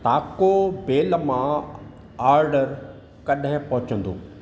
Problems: constant background noise, echo